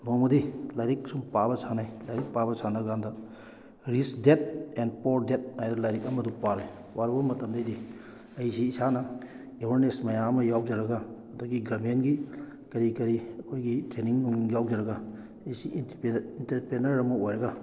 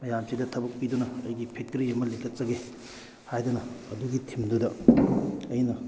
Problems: background conversations at intervals